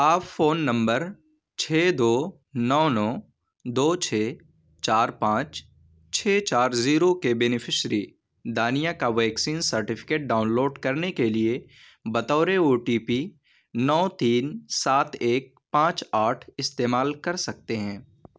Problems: none marked